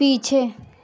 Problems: constant background noise, continuous background conversations